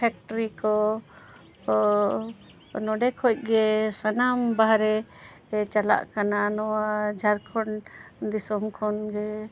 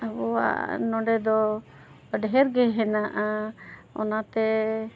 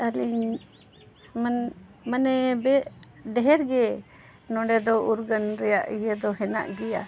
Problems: background sounds at intervals